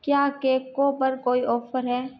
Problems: none marked